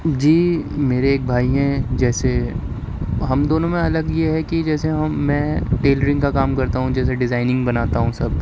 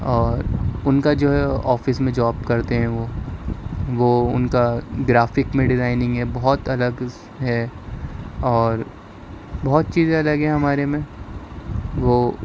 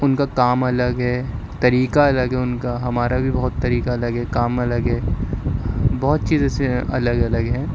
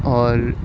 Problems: constant background noise